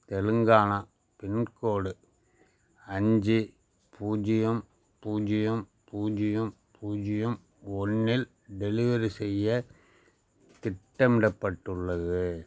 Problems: none marked